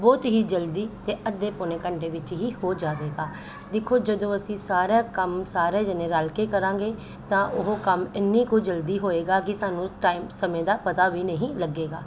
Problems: constant background noise